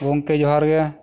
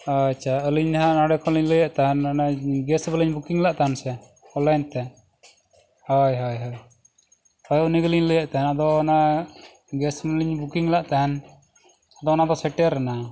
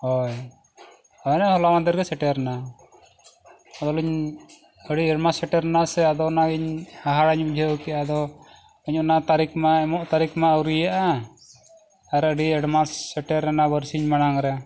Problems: none marked